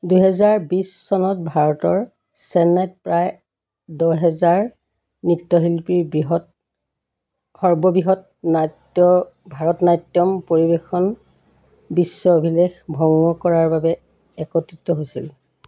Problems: constant background noise